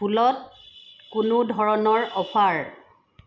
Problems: constant background noise